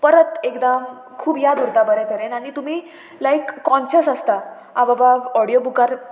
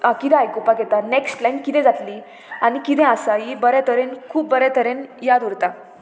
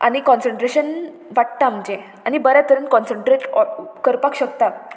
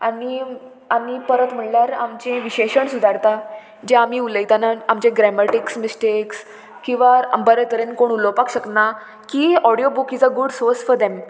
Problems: constant background noise